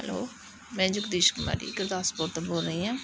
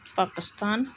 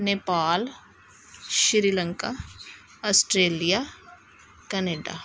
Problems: none marked